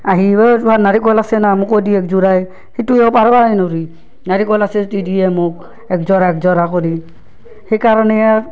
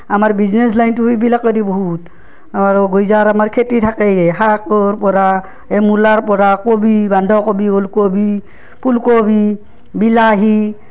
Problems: none marked